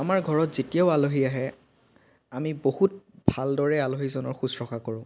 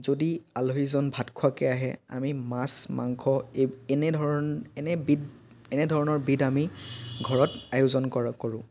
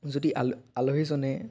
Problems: none marked